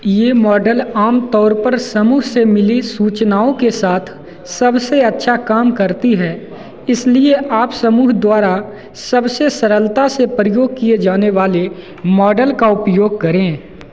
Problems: constant background noise, echo